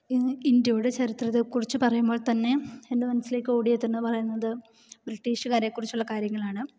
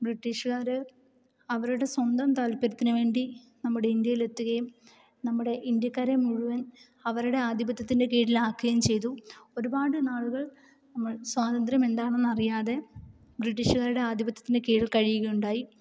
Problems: none marked